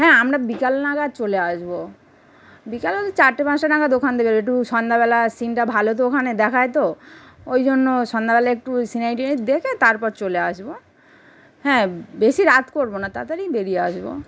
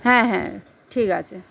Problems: none marked